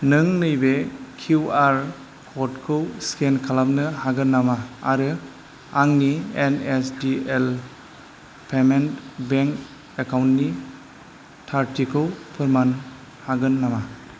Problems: constant background noise